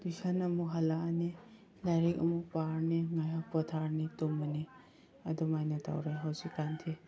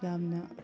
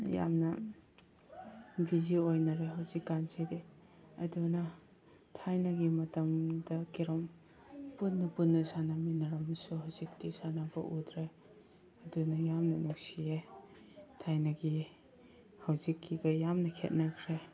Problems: background sounds at intervals